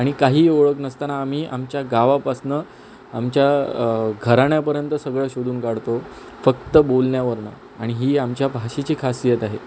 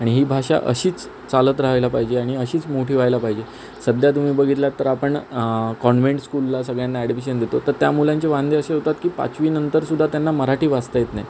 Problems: constant background noise